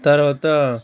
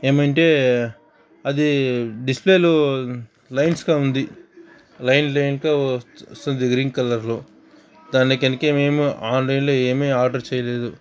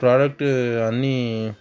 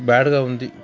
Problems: continuous background conversations